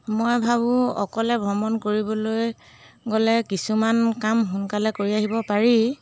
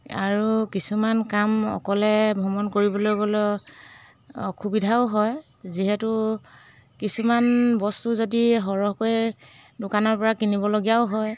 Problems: background sounds at intervals